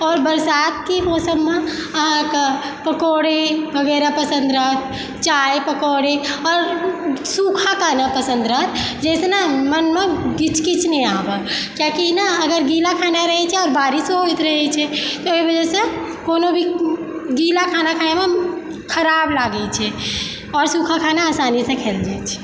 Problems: echo